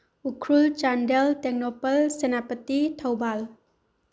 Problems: low volume